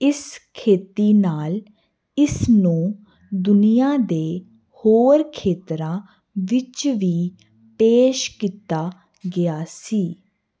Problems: constant background noise